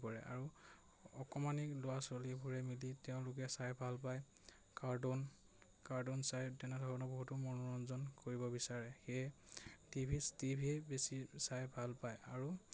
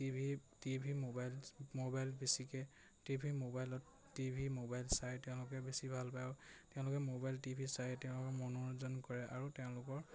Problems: none marked